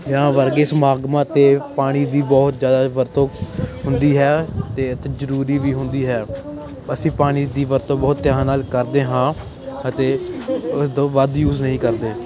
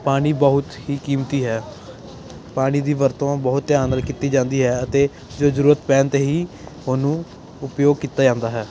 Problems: constant background noise